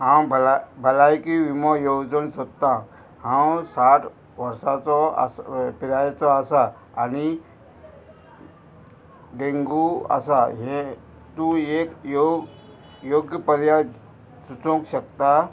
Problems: constant background noise